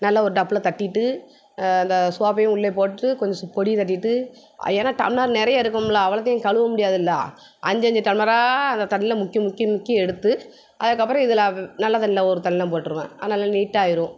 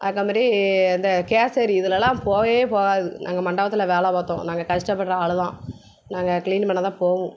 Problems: background sounds at intervals